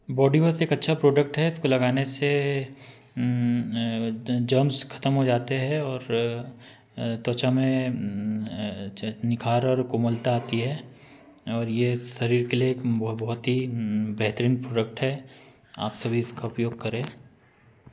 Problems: constant background noise